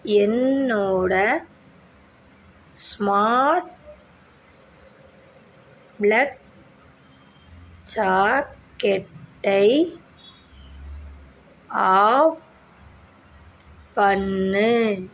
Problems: none marked